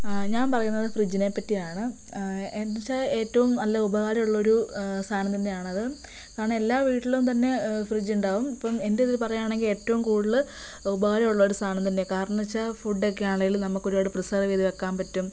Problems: none marked